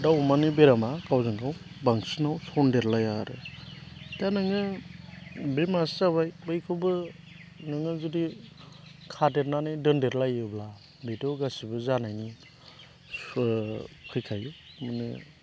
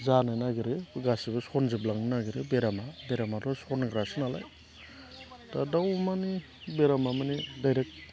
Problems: none marked